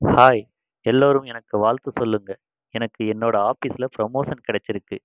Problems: constant background noise